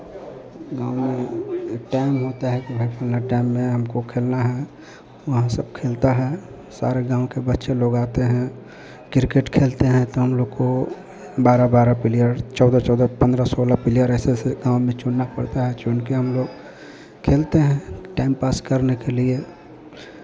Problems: constant background noise